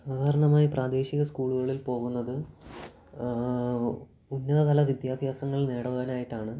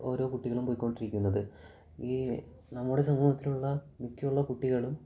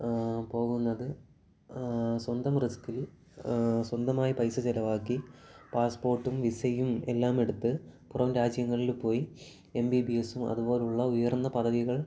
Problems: background sounds at intervals, low volume